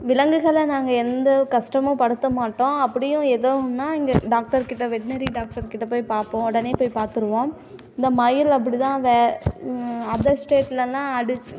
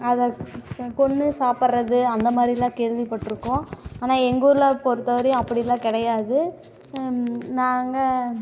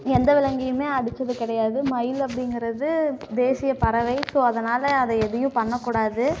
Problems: background sounds at intervals